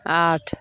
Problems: none marked